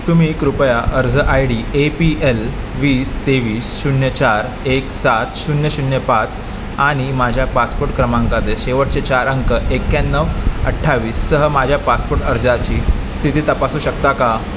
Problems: constant background noise